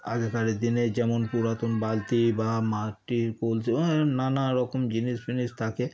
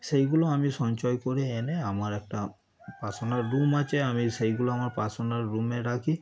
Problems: none marked